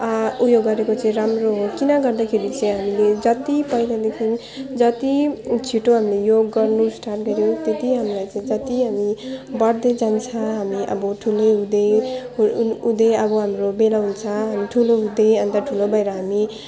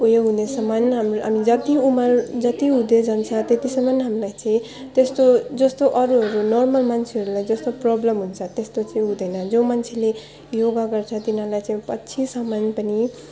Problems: background sounds at intervals